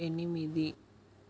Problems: constant background noise, low volume